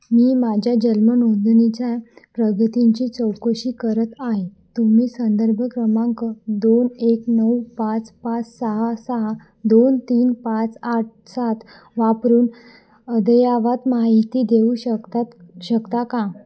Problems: constant background noise, background conversations at intervals, echo